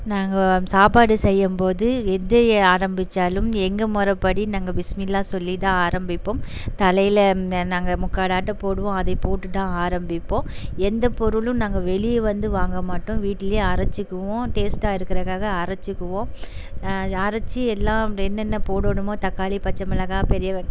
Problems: constant background noise